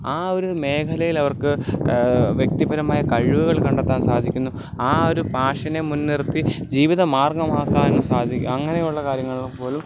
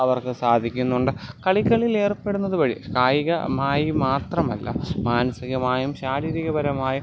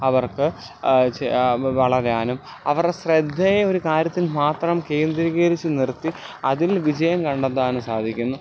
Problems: background sounds at intervals